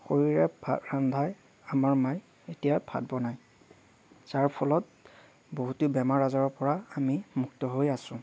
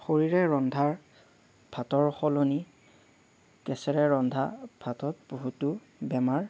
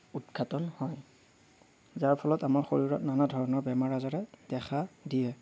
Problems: none marked